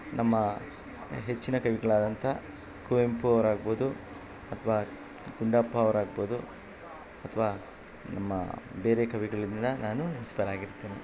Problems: background sounds at intervals